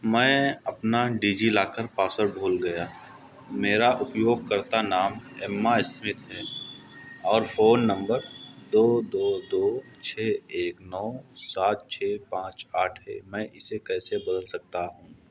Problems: none marked